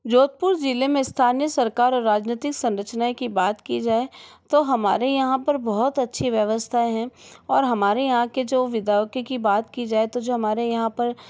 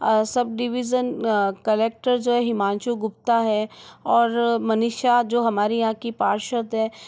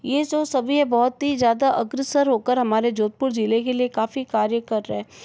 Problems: background sounds at intervals